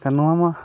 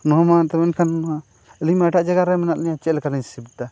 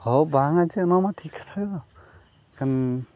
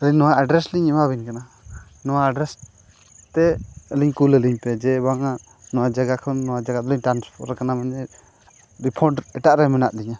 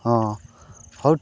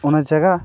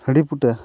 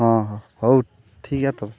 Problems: background sounds at intervals